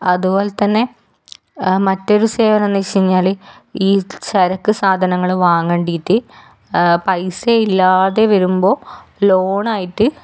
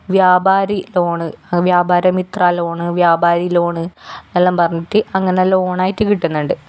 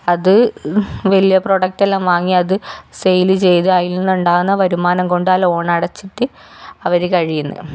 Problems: none marked